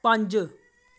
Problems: none marked